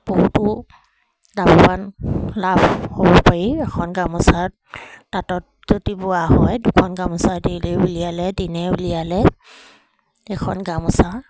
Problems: constant background noise